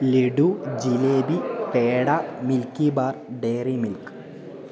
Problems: constant background noise